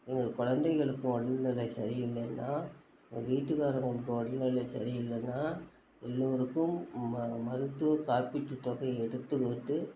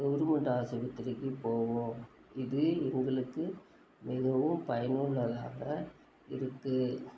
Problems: constant background noise